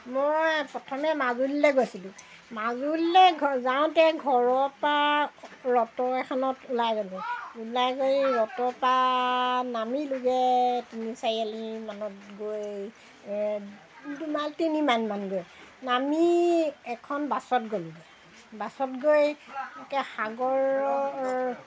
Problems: background sounds at intervals